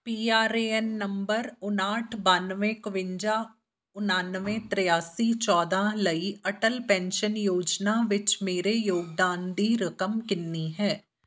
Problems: background sounds at intervals